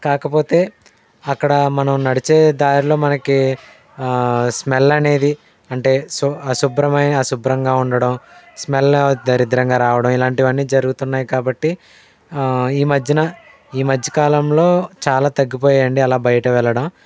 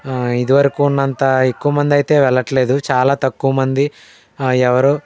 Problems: none marked